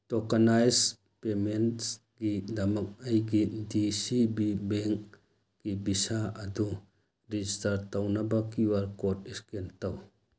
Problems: none marked